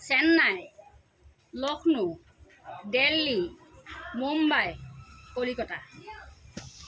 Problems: constant background noise, background conversations at intervals